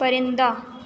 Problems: none marked